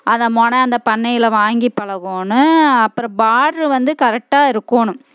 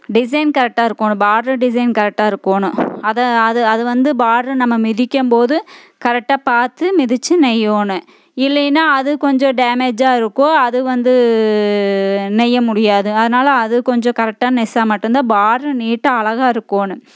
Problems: none marked